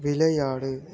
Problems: none marked